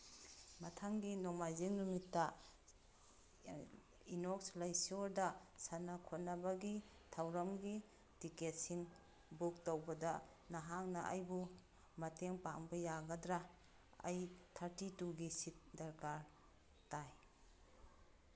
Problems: background sounds at intervals